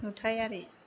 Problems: constant background noise